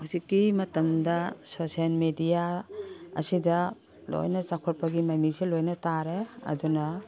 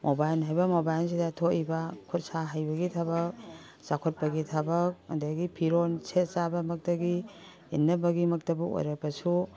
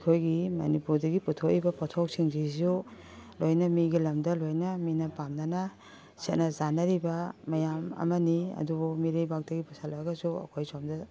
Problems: background sounds at intervals, background conversations at intervals